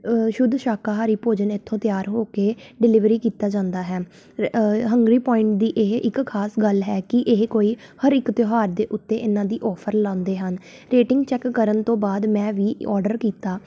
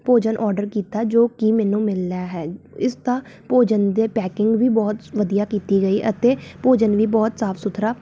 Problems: background sounds at intervals